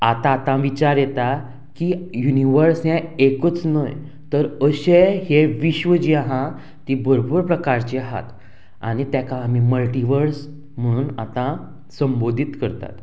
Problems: constant background noise